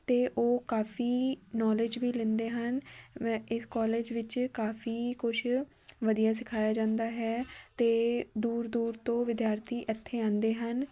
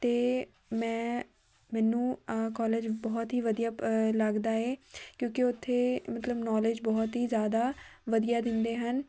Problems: constant background noise, background conversations at intervals